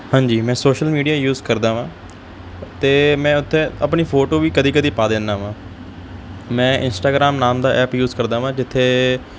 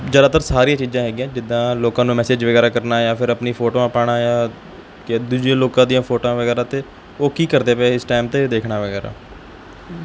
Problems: background sounds at intervals